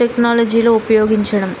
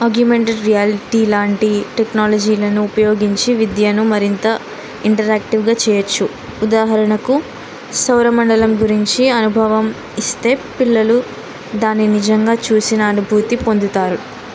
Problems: constant background noise